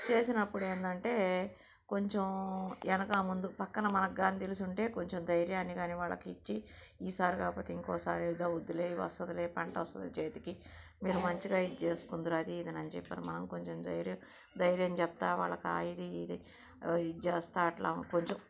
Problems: none marked